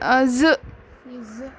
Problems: constant background noise, background conversations at intervals